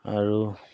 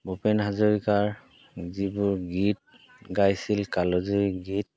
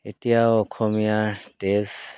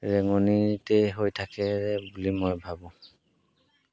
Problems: background sounds at intervals